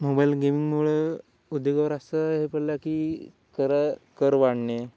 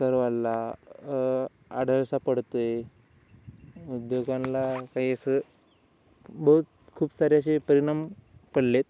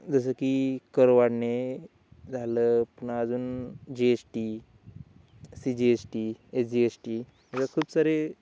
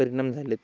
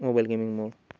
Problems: none marked